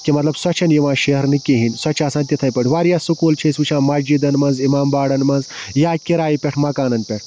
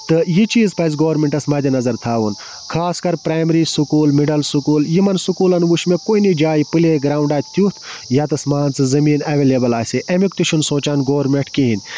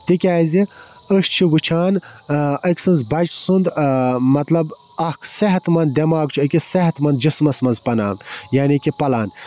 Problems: constant background noise